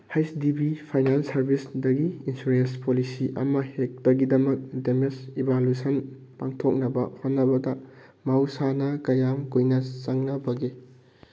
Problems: none marked